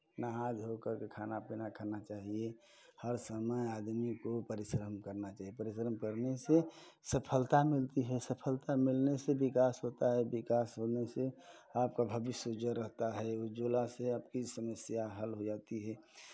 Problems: constant background noise